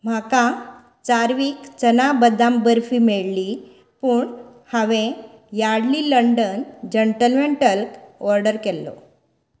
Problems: background sounds at intervals